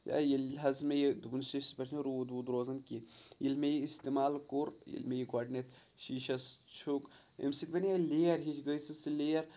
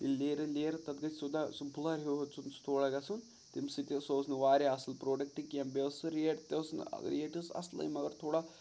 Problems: background sounds at intervals